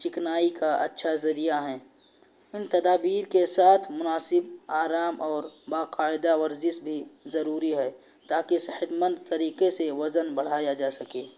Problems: constant background noise